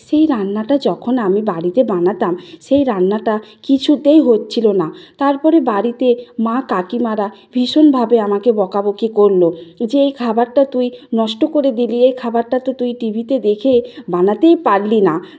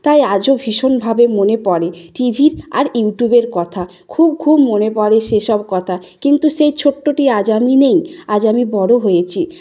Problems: background sounds at intervals